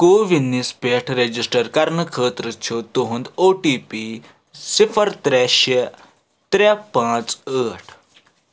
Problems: background sounds at intervals